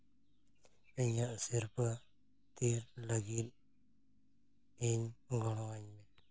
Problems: constant background noise